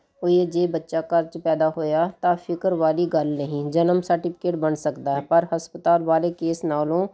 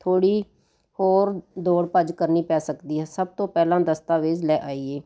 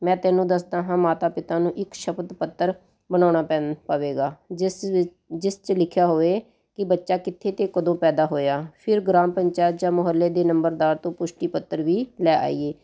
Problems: none marked